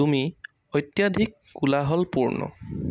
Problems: constant background noise